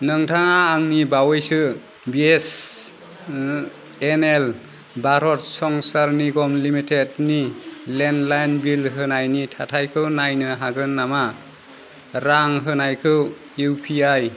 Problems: constant background noise